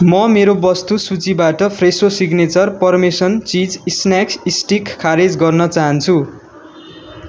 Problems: none marked